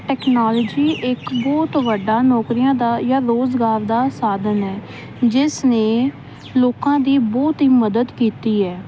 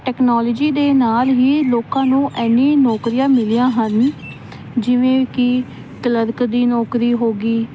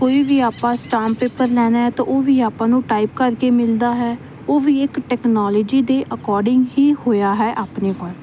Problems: constant background noise